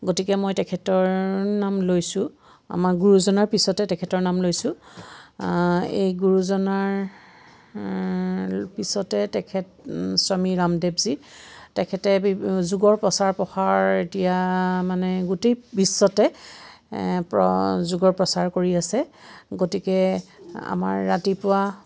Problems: none marked